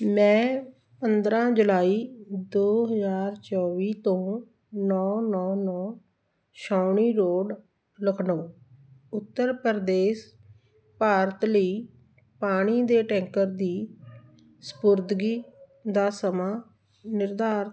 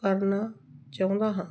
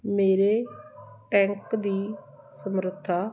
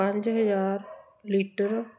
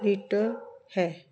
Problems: background sounds at intervals